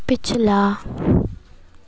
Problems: constant background noise